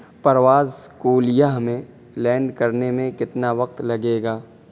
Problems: constant background noise